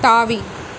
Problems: constant background noise